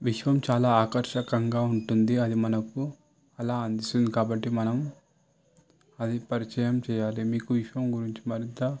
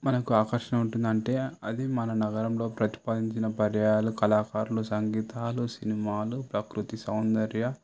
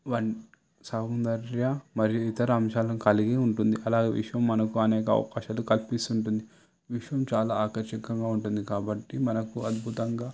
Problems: background sounds at intervals